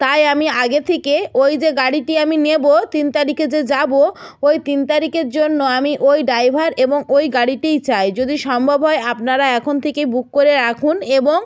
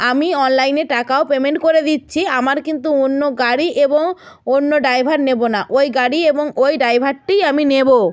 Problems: background sounds at intervals